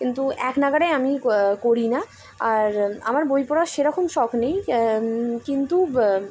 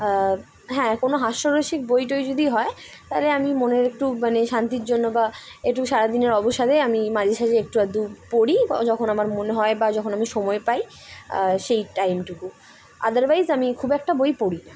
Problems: none marked